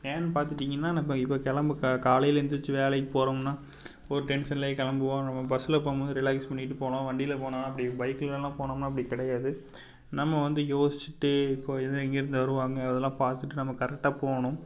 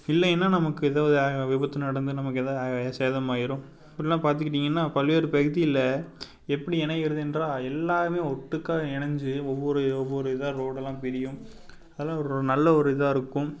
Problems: background sounds at intervals